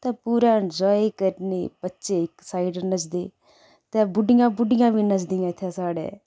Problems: background sounds at intervals